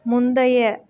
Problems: none marked